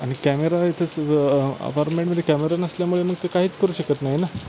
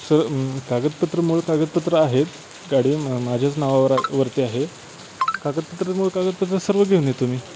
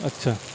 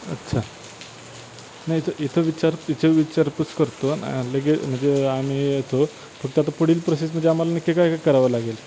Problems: constant background noise